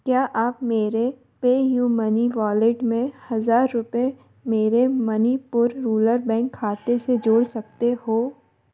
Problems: none marked